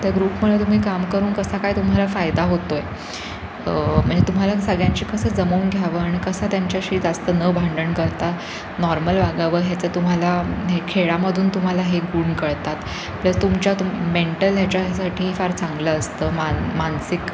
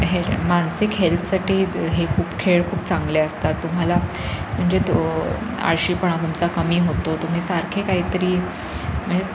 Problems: constant background noise